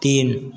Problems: constant background noise